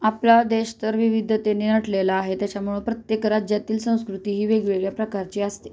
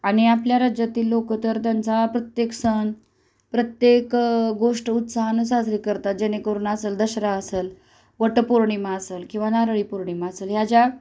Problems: none marked